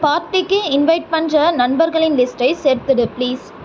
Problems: none marked